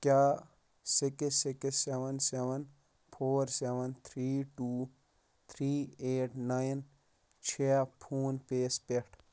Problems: background sounds at intervals